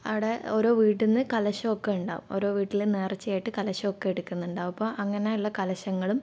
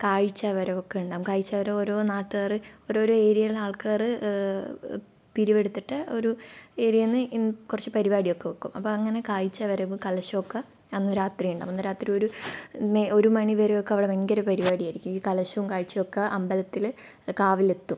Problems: low volume